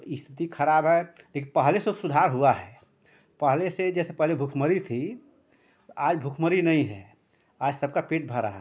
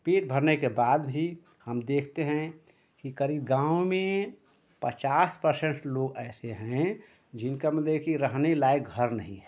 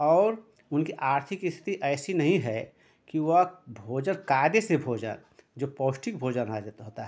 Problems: none marked